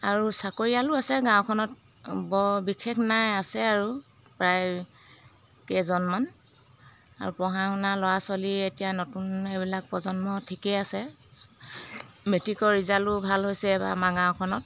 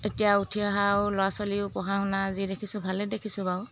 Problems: background sounds at intervals